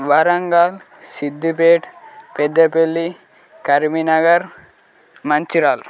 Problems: background conversations at intervals